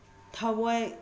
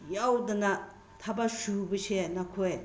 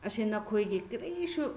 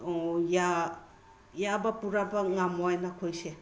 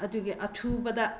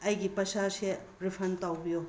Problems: background sounds at intervals